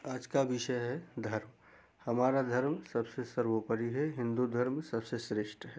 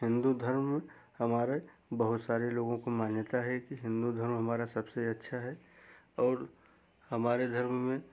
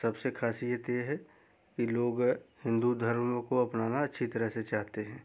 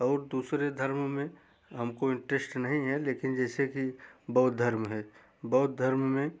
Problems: background sounds at intervals